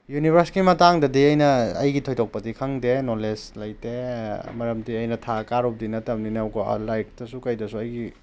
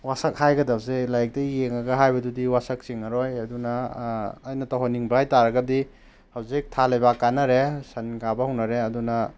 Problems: background sounds at intervals